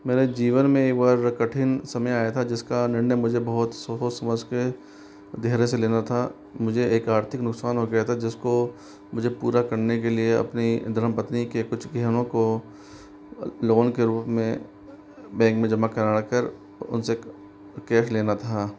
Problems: constant background noise